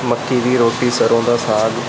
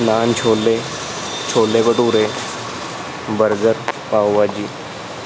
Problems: constant background noise